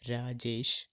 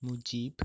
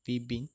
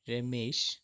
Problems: none marked